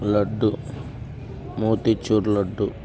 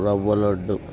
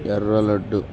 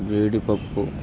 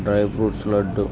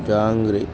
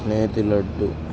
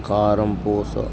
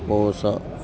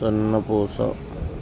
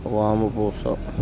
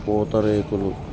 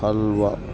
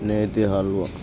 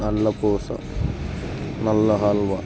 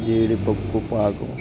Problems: constant background noise, background conversations at intervals